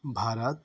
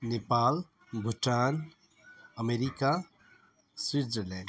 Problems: background sounds at intervals